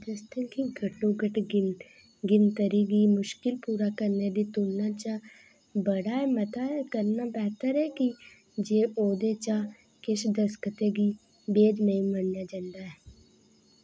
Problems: constant background noise